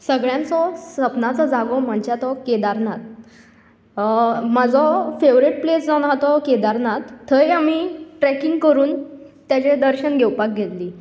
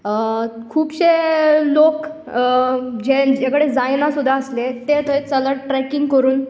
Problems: none marked